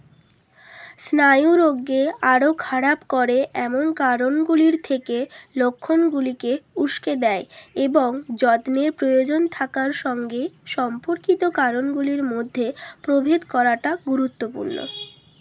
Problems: none marked